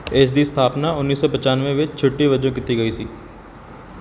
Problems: background sounds at intervals